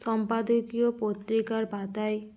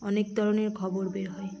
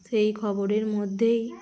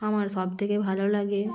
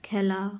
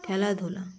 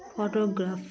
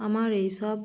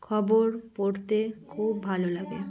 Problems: none marked